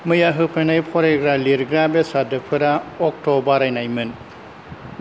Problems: none marked